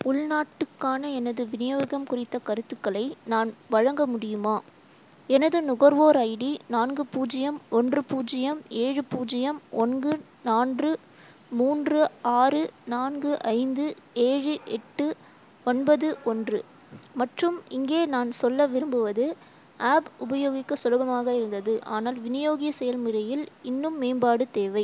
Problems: constant background noise